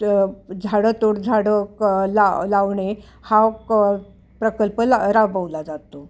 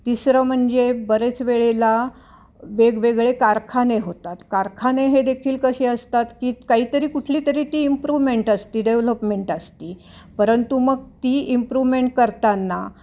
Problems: none marked